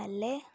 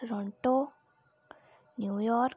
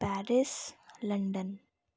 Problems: none marked